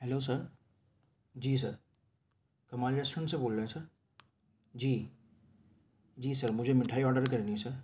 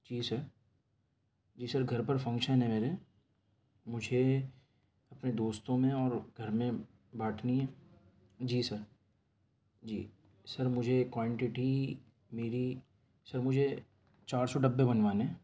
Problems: background sounds at intervals